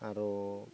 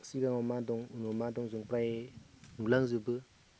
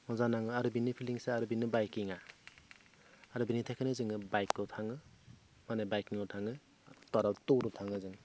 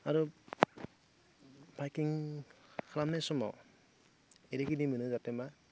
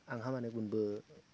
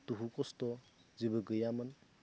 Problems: none marked